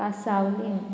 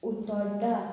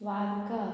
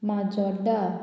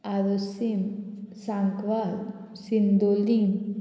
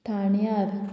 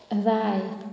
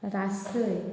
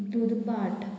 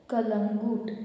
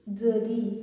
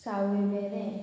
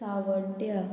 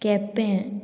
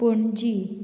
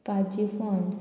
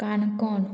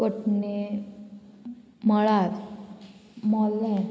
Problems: constant background noise